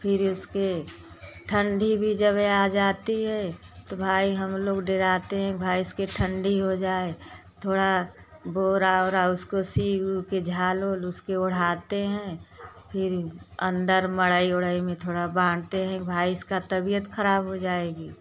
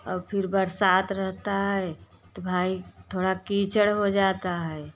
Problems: constant background noise